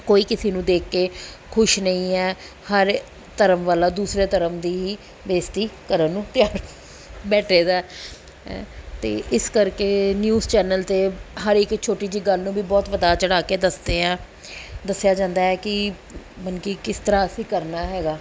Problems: background sounds at intervals